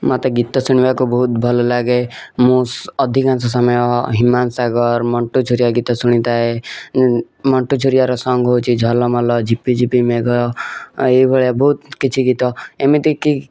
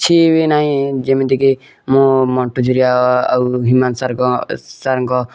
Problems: none marked